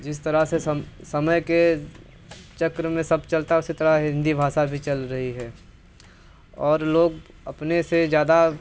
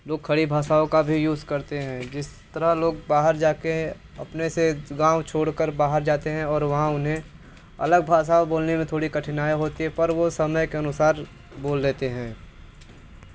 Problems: constant background noise